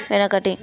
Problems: background conversations at intervals